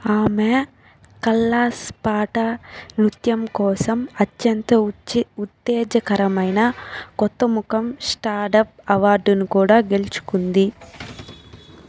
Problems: background sounds at intervals